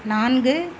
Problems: constant background noise